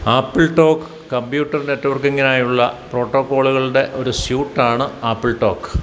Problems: none marked